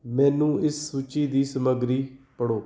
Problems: background sounds at intervals